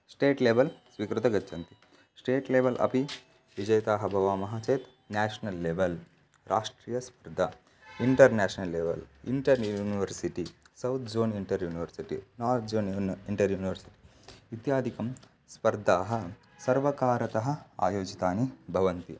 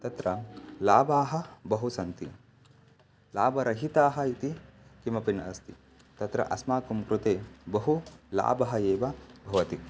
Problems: constant background noise